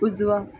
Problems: background sounds at intervals